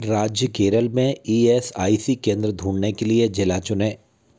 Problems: constant background noise